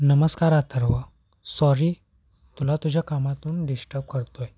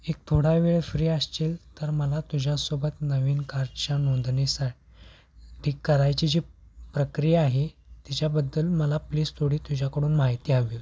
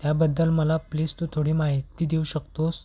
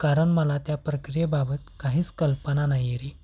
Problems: none marked